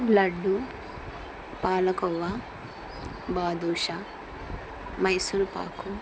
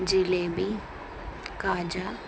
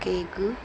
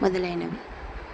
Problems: constant background noise